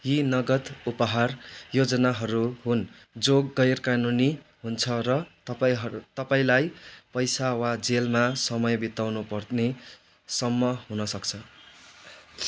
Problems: none marked